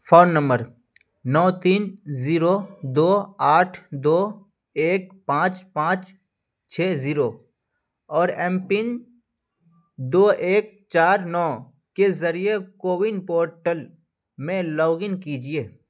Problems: none marked